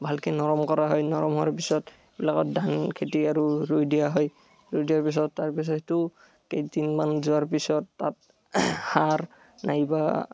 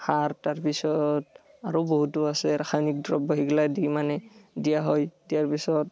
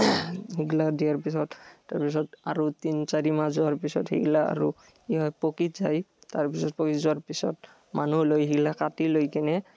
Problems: background sounds at intervals